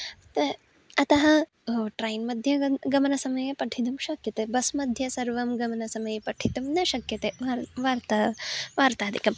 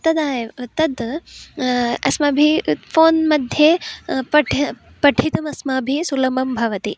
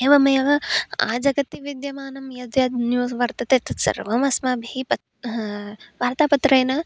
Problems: none marked